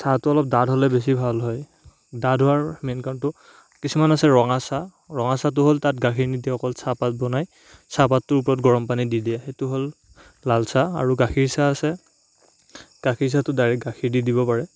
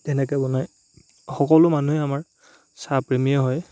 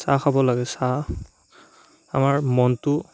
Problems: none marked